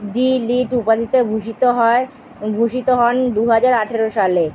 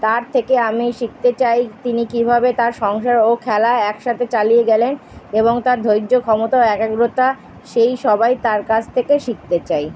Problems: background sounds at intervals